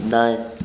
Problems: none marked